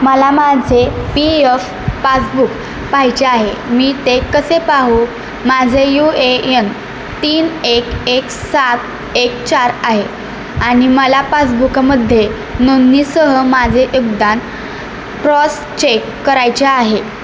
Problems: constant background noise